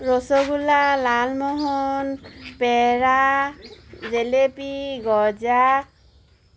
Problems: constant background noise